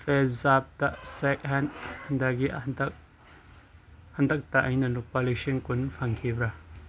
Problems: background sounds at intervals